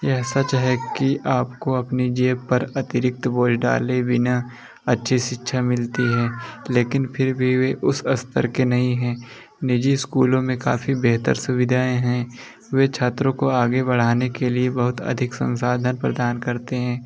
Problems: constant background noise